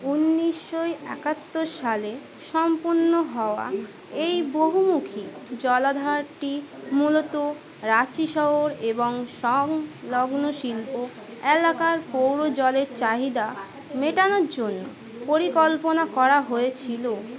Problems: constant background noise, continuous background conversations